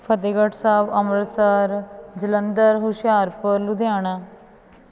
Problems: continuous background conversations